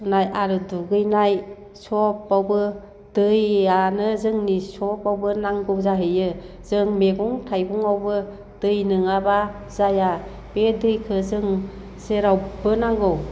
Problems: low volume